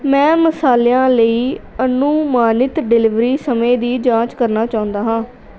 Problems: none marked